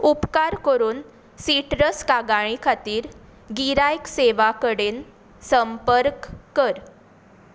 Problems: background sounds at intervals